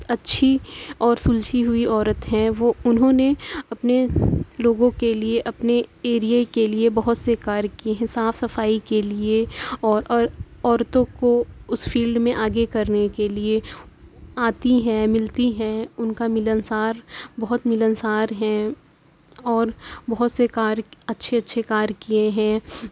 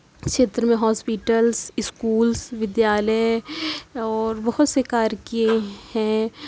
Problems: constant background noise